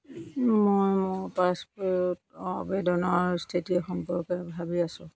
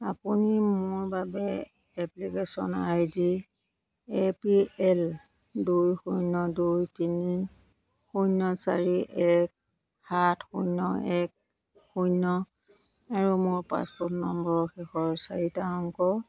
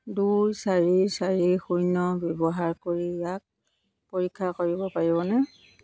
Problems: none marked